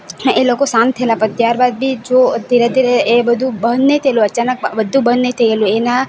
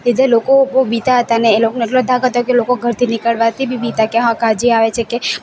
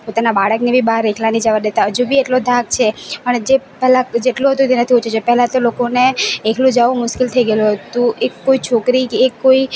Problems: constant background noise